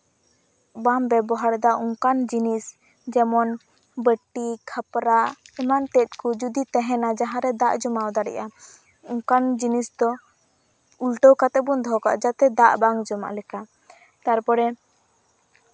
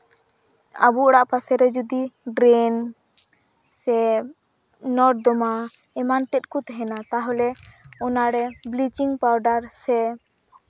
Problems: constant background noise